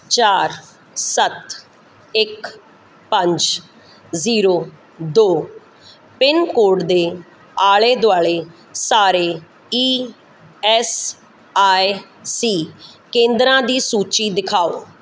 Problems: none marked